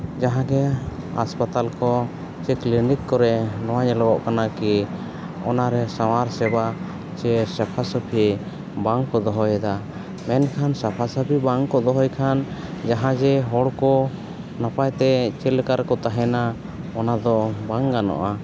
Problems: constant background noise